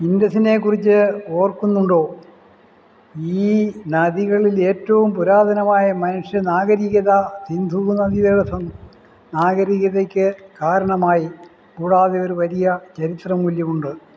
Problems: none marked